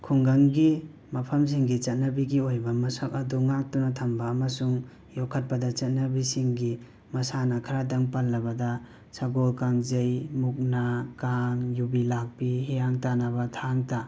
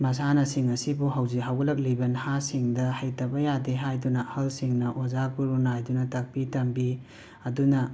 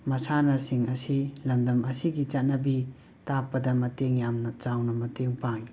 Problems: background sounds at intervals